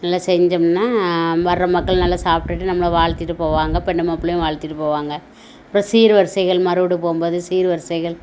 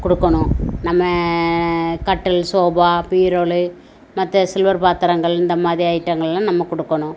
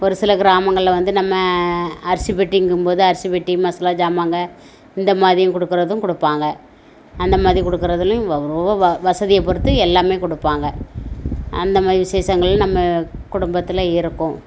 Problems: none marked